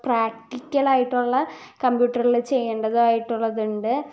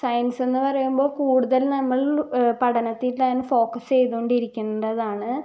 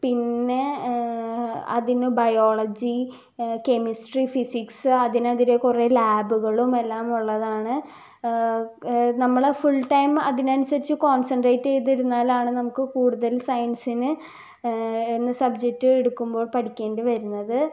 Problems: low volume